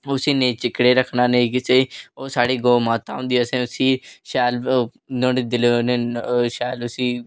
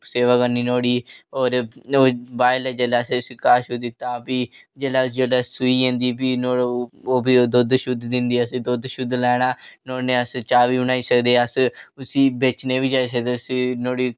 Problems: none marked